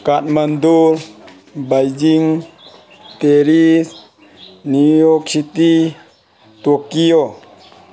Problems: constant background noise